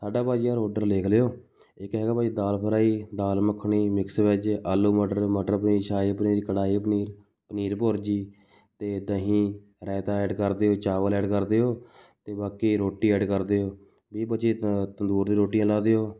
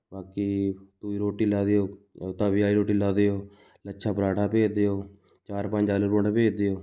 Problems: background sounds at intervals